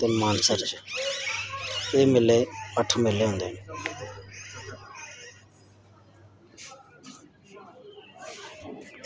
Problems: none marked